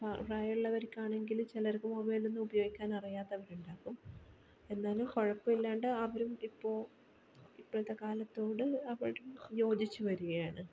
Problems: background sounds at intervals, low volume